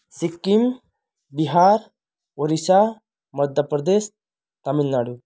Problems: none marked